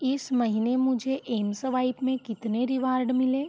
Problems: constant background noise